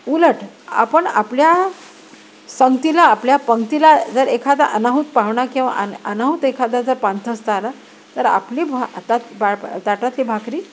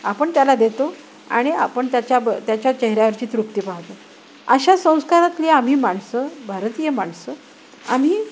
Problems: none marked